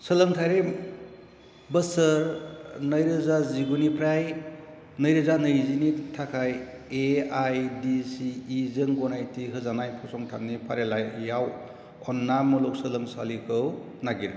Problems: none marked